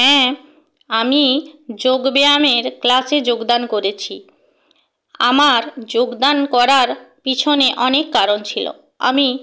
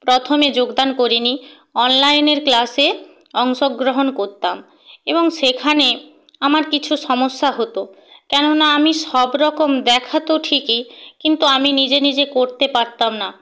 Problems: none marked